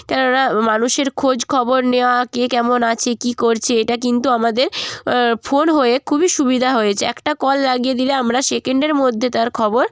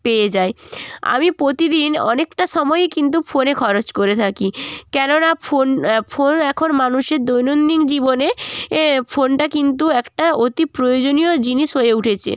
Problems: constant background noise, continuous background conversations